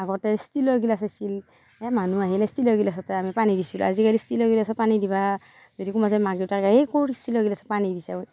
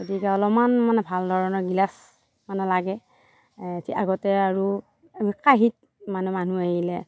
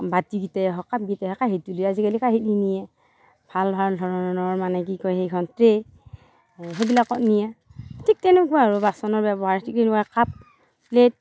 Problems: none marked